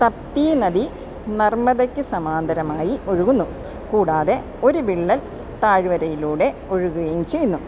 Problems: constant background noise